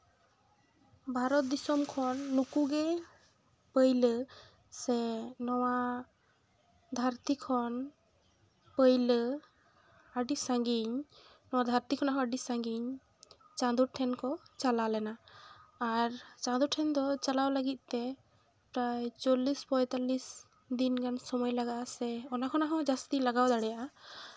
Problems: none marked